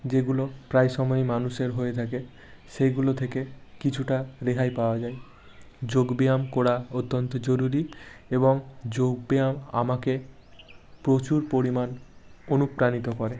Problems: none marked